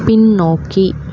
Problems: constant background noise